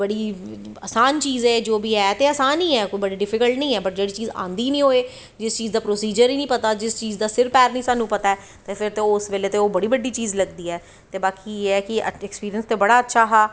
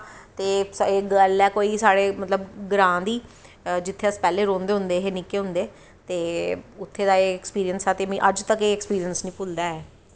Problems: none marked